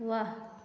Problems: echo